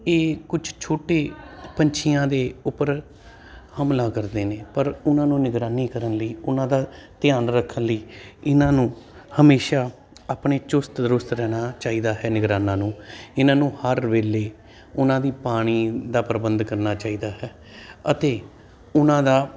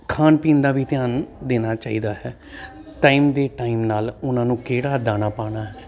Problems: constant background noise